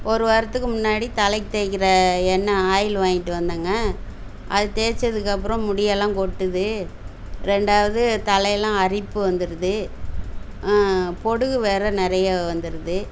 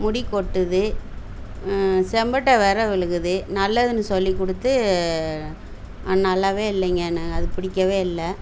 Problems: background sounds at intervals